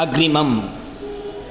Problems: background sounds at intervals